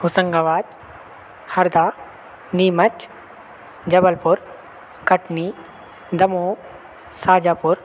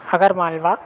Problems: constant background noise